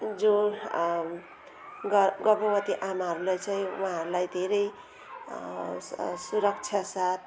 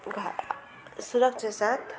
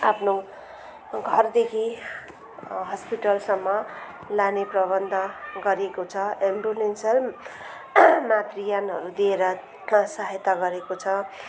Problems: continuous background conversations